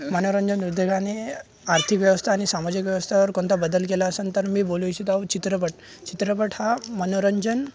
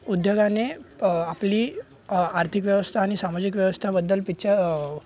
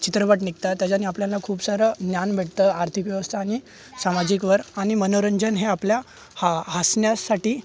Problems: none marked